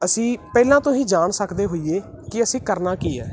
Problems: continuous background conversations